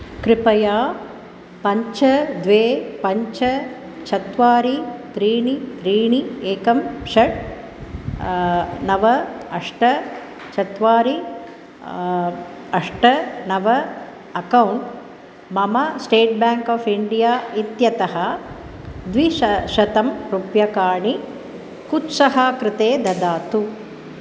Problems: constant background noise